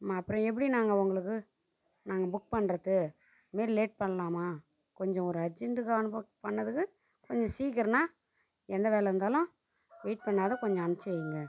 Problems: constant background noise, low volume